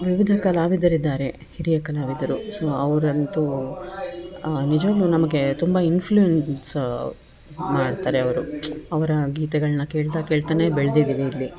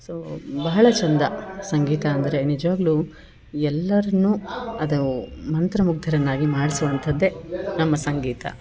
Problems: background conversations at intervals